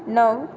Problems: none marked